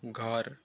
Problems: low volume